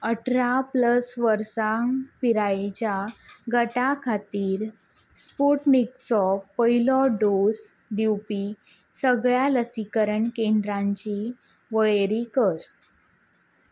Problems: none marked